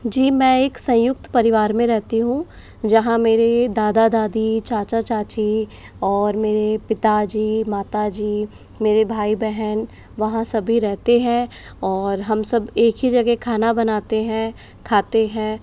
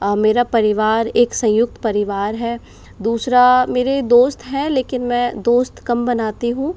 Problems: none marked